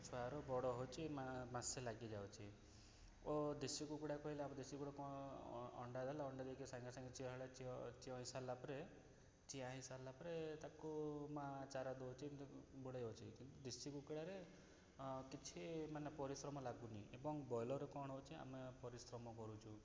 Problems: background sounds at intervals, low volume